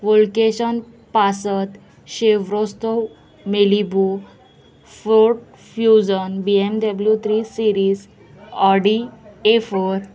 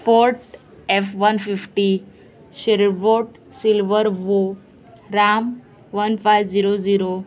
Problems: constant background noise, continuous background conversations